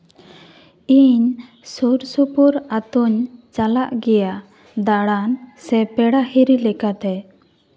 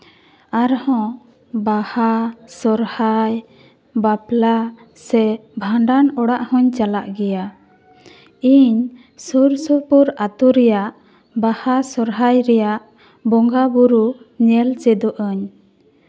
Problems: none marked